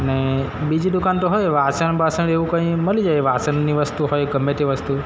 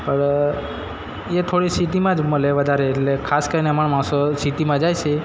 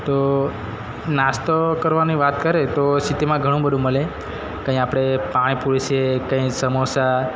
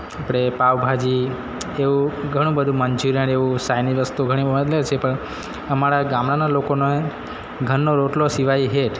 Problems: constant background noise, background conversations at intervals